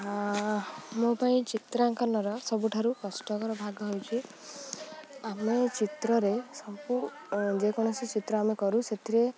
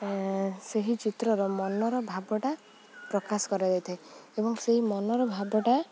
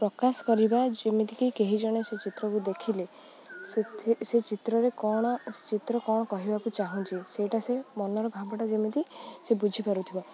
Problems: low volume